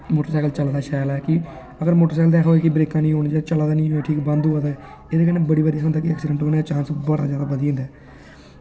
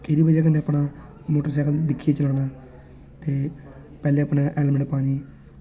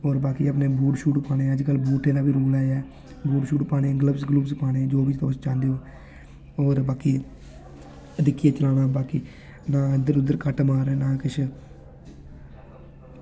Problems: constant background noise